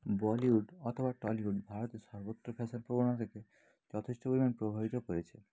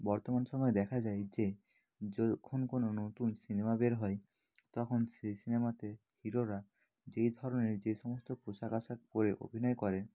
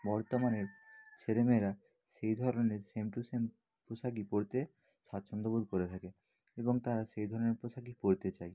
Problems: background sounds at intervals, low volume